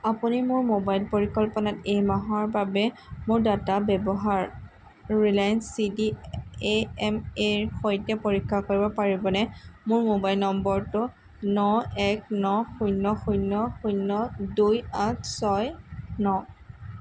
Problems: constant background noise